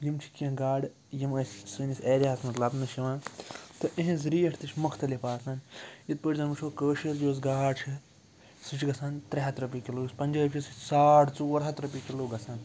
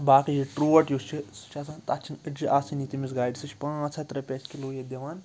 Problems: background sounds at intervals